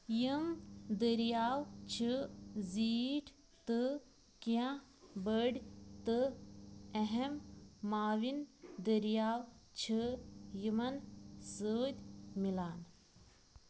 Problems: none marked